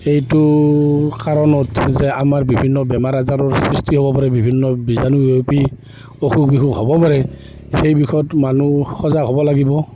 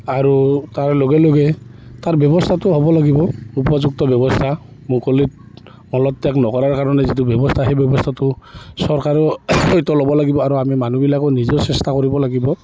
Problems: constant background noise